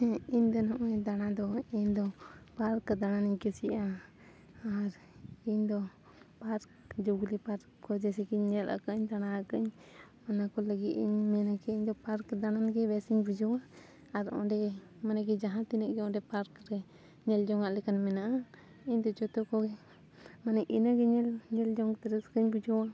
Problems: none marked